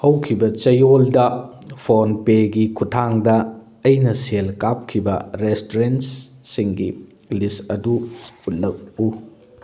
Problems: none marked